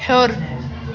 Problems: none marked